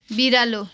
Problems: constant background noise